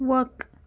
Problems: constant background noise